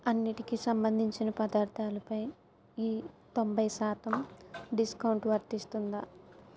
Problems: background sounds at intervals